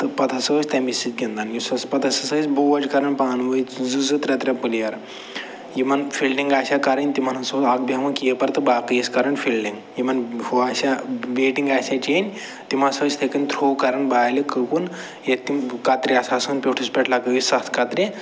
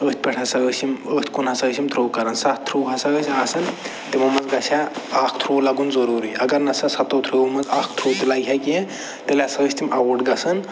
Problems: none marked